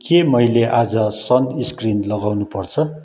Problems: continuous background conversations